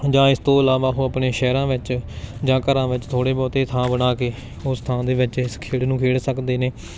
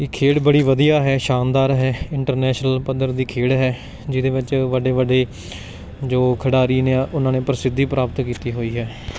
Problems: background sounds at intervals, background conversations at intervals